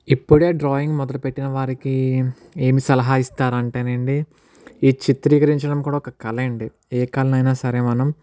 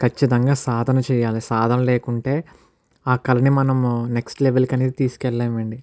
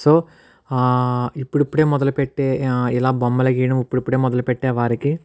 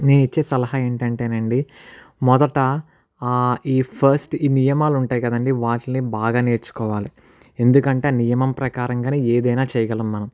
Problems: none marked